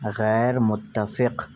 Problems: none marked